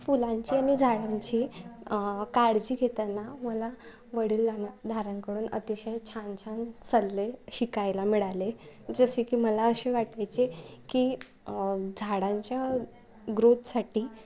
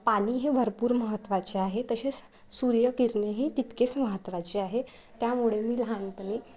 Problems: none marked